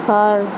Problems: constant background noise